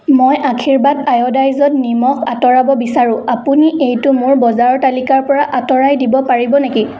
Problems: background sounds at intervals, echo